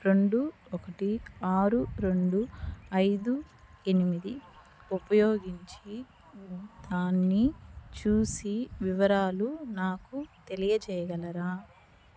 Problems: background sounds at intervals, low volume